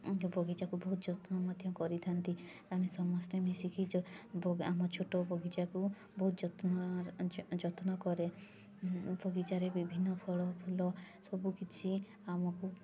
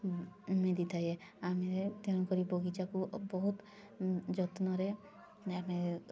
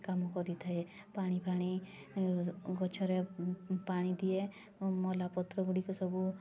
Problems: constant background noise